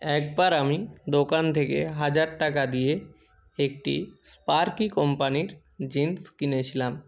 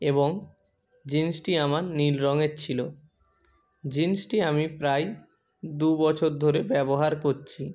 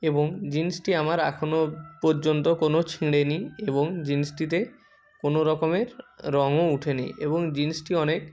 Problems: constant background noise, continuous background conversations